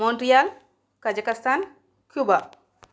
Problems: none marked